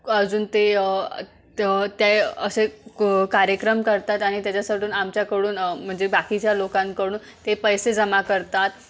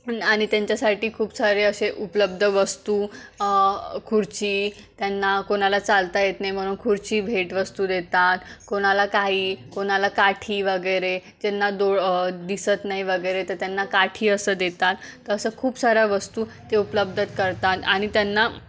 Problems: none marked